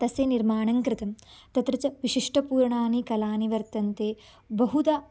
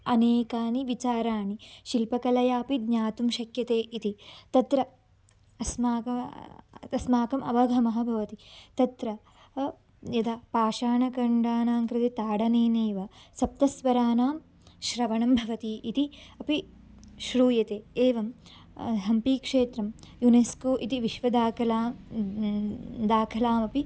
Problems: background sounds at intervals, background conversations at intervals